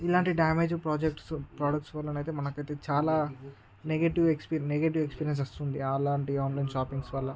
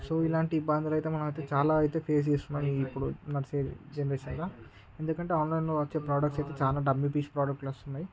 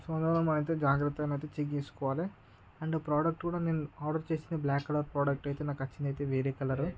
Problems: constant background noise